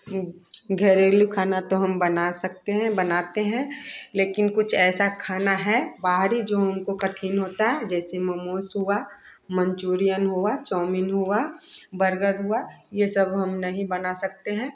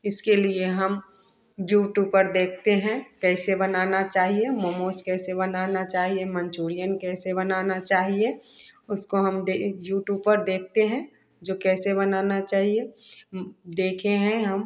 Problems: none marked